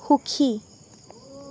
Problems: none marked